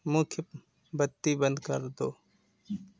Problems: constant background noise